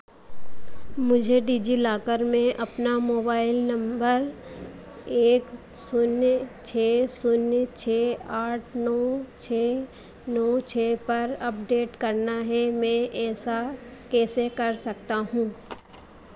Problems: constant background noise